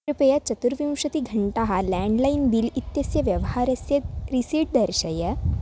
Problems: background sounds at intervals